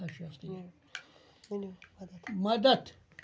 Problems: continuous background conversations